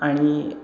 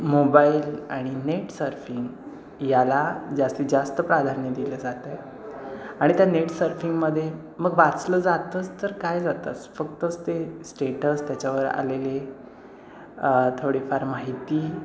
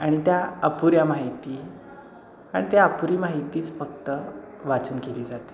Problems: constant background noise